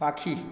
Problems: none marked